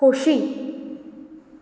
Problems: none marked